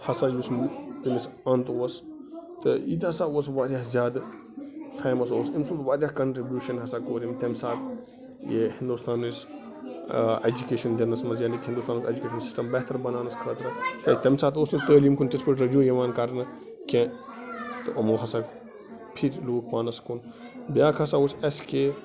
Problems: background sounds at intervals, continuous background conversations